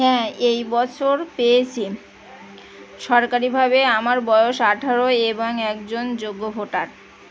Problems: constant background noise